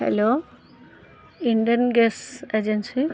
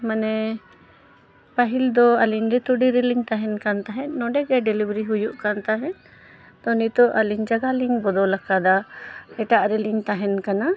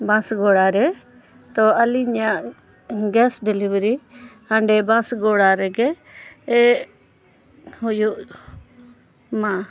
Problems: none marked